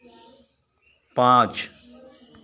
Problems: background sounds at intervals